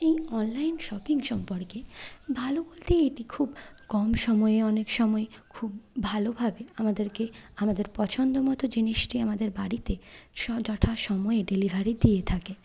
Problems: none marked